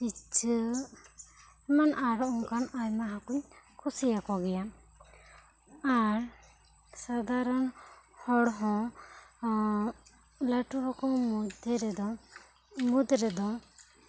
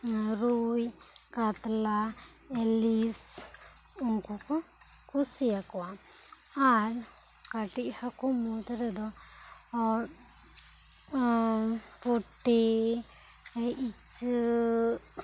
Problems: background sounds at intervals, low volume